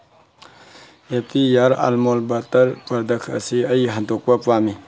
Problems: low volume